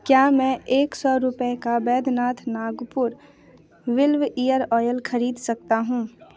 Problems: constant background noise, background conversations at intervals